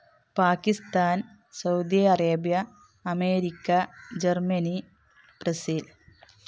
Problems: background sounds at intervals